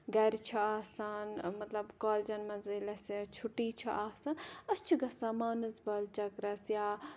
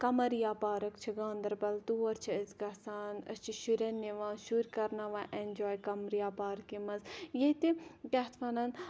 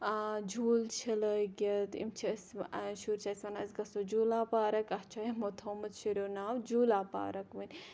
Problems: background sounds at intervals, background conversations at intervals